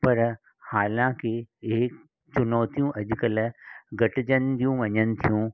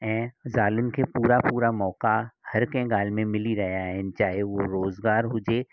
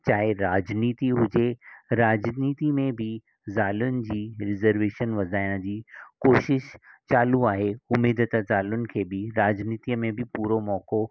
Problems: none marked